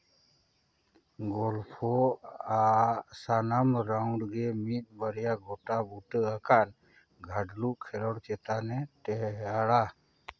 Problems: background sounds at intervals